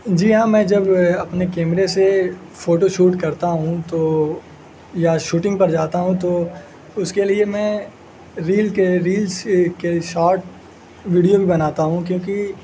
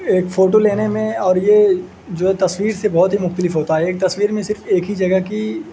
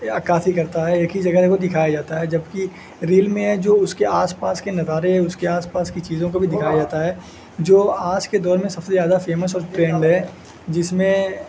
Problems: constant background noise